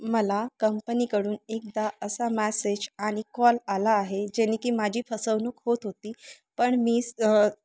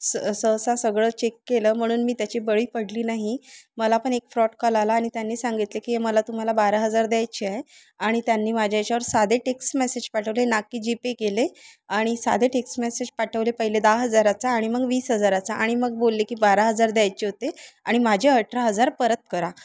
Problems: constant background noise, continuous background conversations